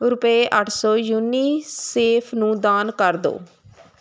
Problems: constant background noise